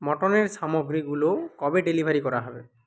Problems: background sounds at intervals